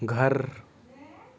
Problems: background conversations at intervals